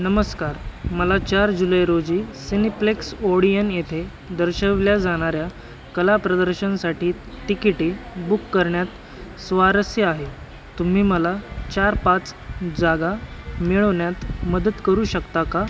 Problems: none marked